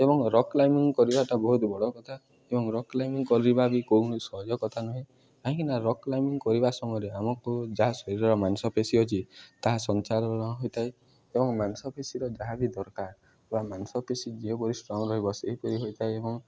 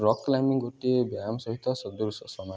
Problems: background sounds at intervals, background conversations at intervals